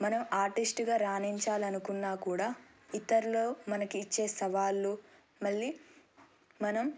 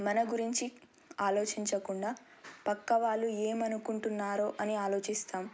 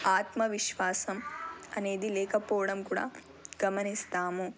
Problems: none marked